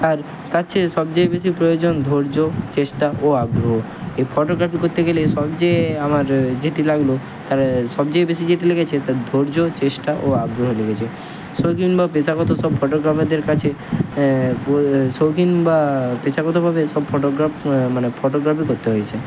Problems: constant background noise